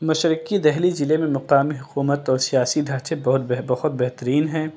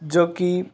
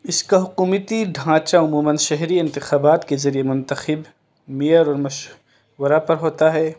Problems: constant background noise